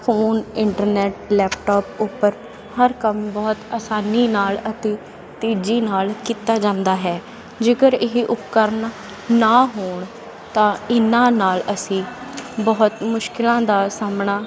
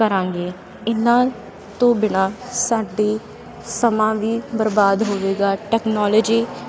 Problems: constant background noise